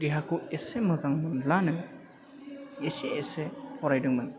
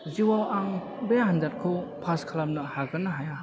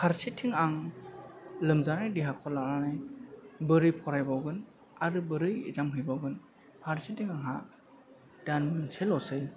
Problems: background sounds at intervals